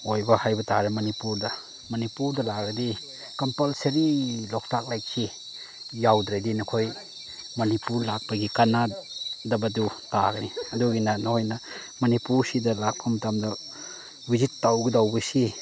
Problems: constant background noise